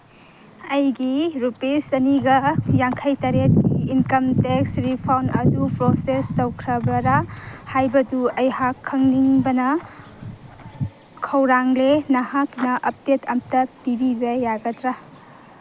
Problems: background sounds at intervals